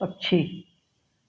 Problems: background sounds at intervals